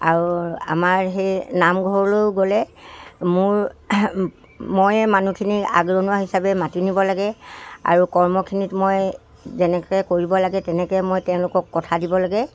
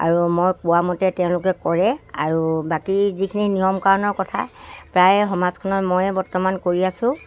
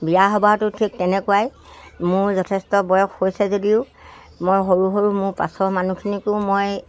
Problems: none marked